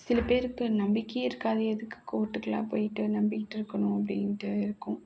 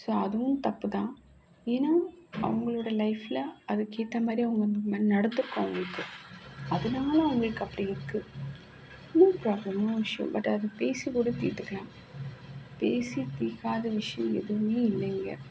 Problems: constant background noise